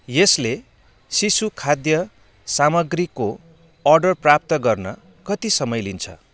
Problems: none marked